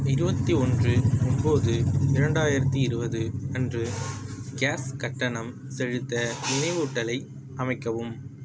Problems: background sounds at intervals